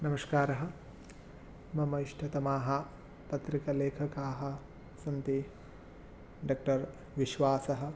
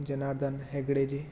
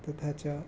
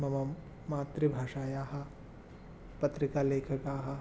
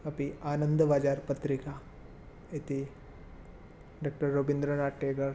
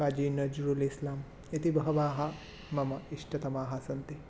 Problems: none marked